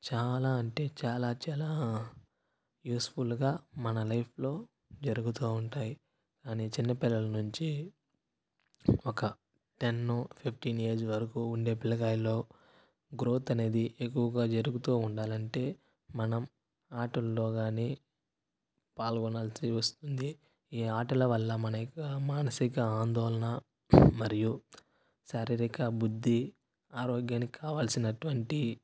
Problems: background sounds at intervals, low volume